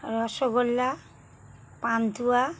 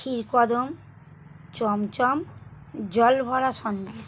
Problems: none marked